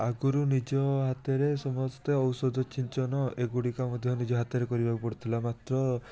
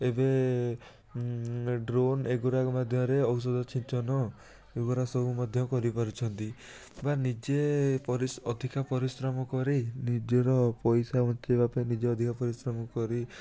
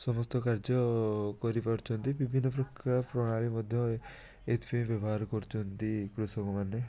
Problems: constant background noise, continuous background conversations